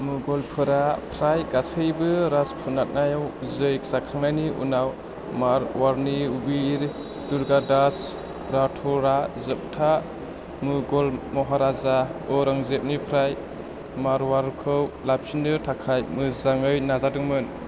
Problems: constant background noise